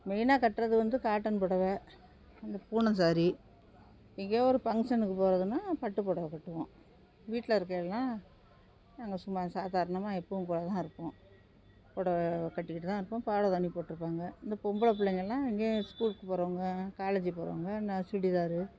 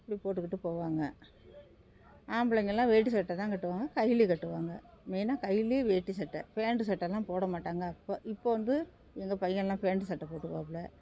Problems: none marked